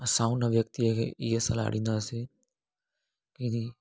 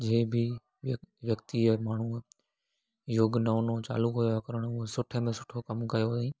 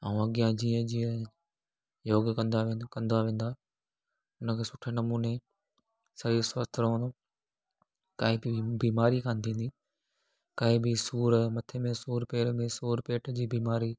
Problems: none marked